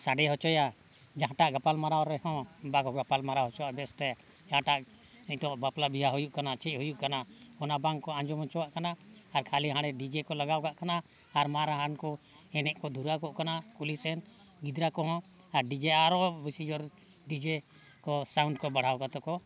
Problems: background sounds at intervals